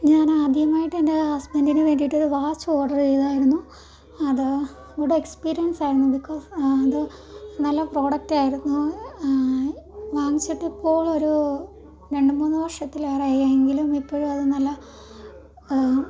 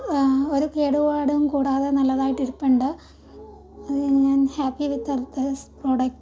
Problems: background sounds at intervals